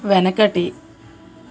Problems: constant background noise